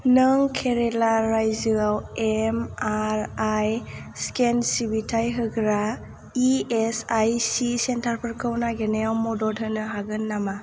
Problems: low volume